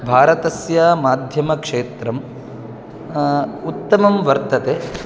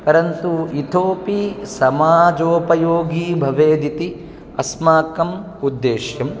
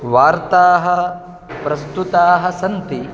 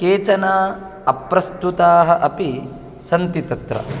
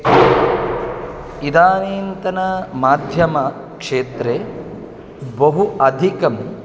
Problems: constant background noise